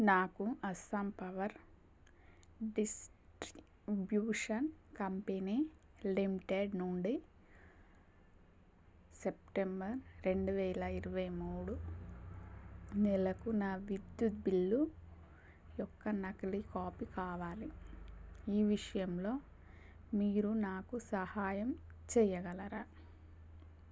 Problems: constant background noise, low volume